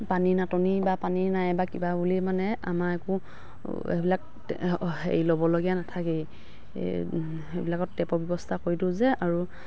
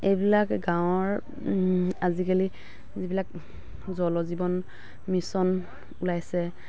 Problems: background sounds at intervals, background conversations at intervals